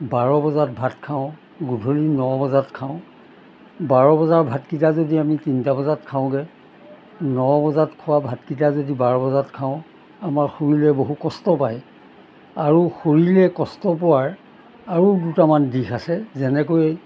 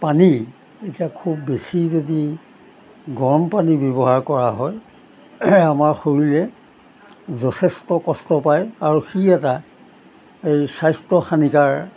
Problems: background sounds at intervals